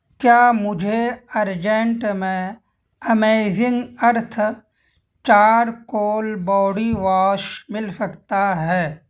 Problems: constant background noise